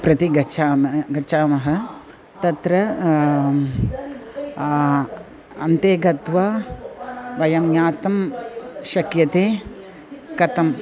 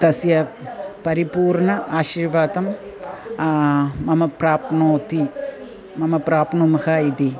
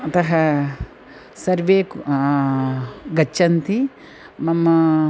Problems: none marked